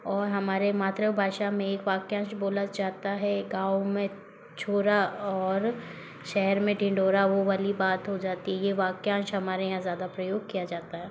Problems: constant background noise